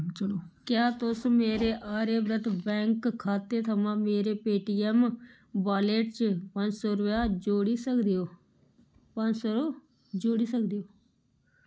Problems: none marked